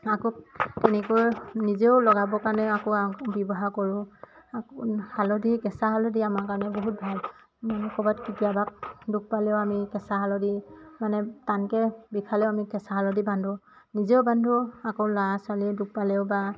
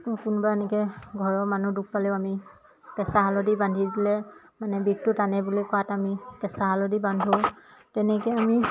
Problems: constant background noise, background conversations at intervals